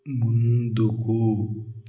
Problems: none marked